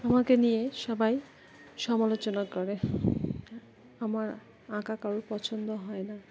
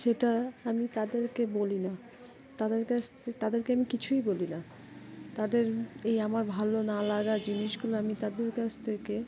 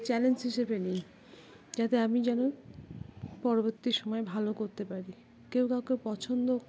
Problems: constant background noise, continuous background conversations